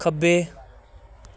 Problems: background sounds at intervals